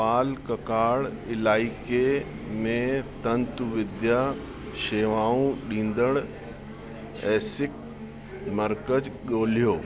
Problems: constant background noise